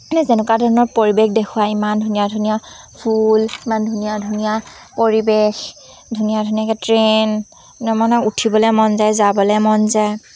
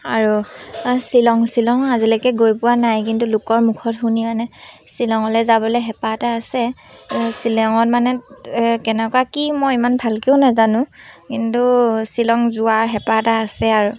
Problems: constant background noise